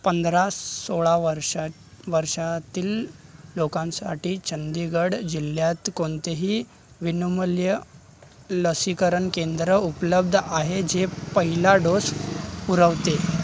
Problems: none marked